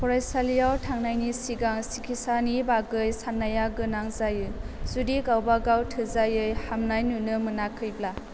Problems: constant background noise